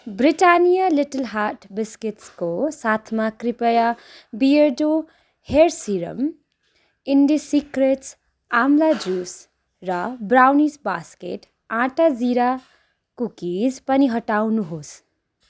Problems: background sounds at intervals